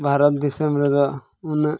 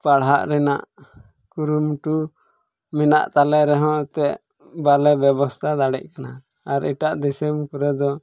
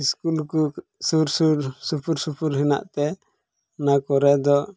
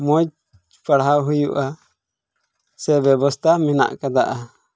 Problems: background sounds at intervals, low volume